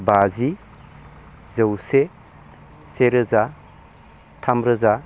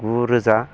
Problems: none marked